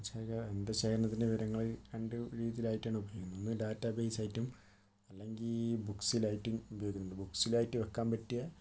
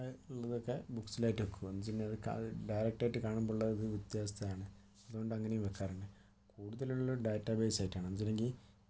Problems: none marked